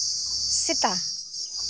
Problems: constant background noise